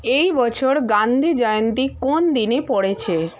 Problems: background conversations at intervals